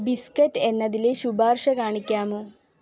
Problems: low volume